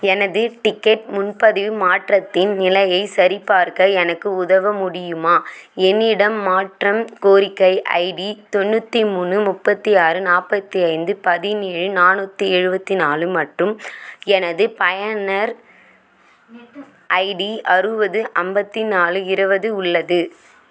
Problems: background conversations at intervals